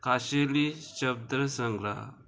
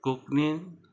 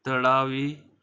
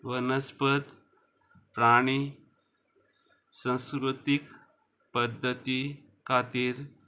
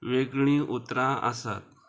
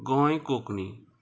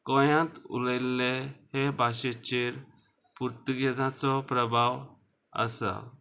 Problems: constant background noise